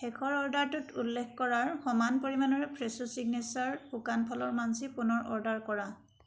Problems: background sounds at intervals